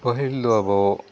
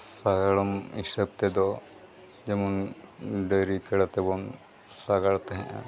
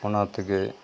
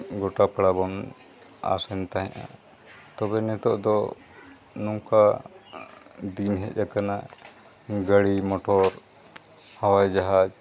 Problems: constant background noise